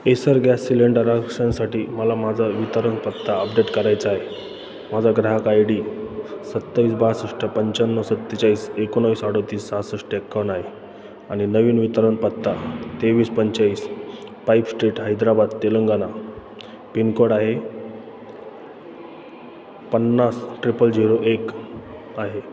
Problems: constant background noise